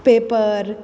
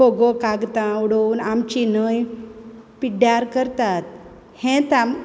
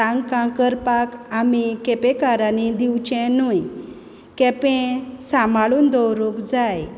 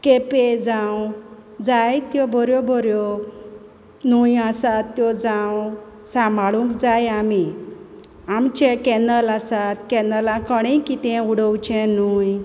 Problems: none marked